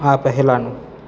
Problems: constant background noise